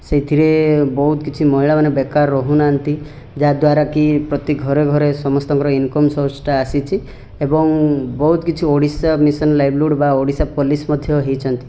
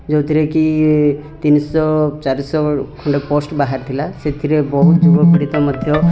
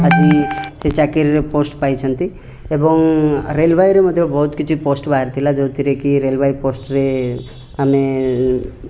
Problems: background sounds at intervals, background conversations at intervals